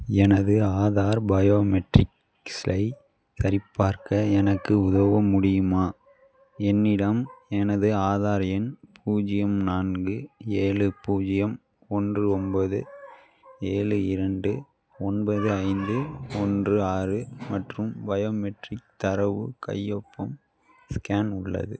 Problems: background sounds at intervals